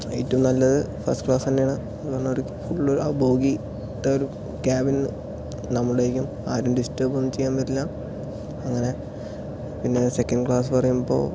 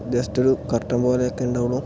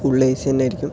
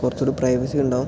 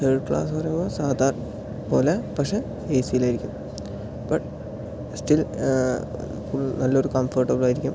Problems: low volume